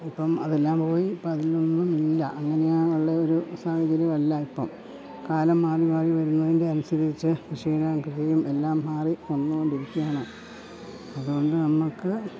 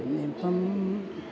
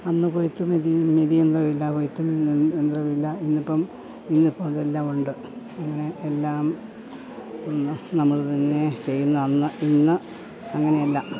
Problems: constant background noise, background conversations at intervals